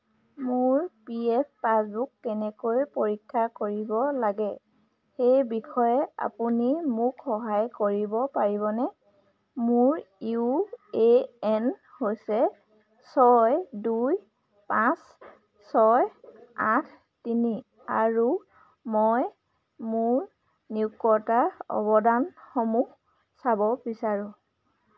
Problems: constant background noise